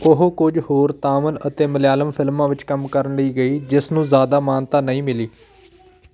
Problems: constant background noise, background conversations at intervals